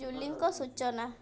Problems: constant background noise, continuous background conversations